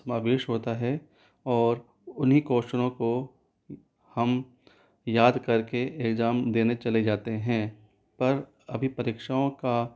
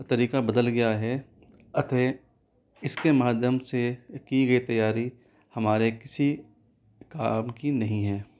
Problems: none marked